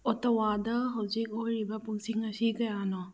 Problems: none marked